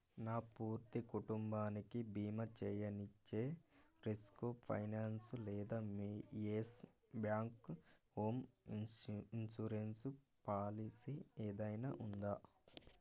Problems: none marked